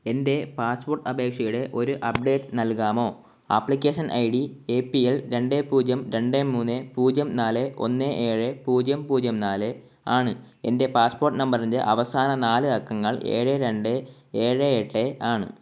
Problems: none marked